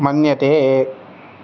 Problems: none marked